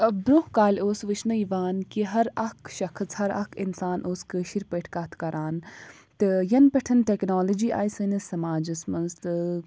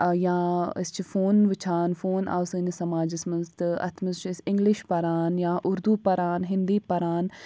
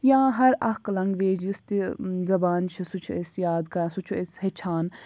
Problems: low volume